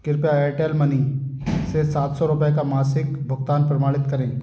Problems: background sounds at intervals